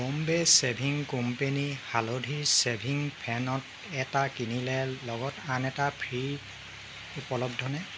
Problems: constant background noise